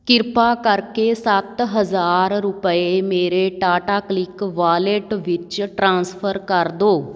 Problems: background sounds at intervals